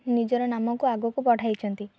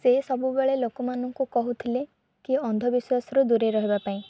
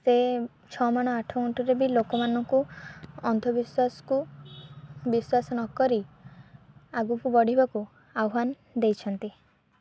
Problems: low volume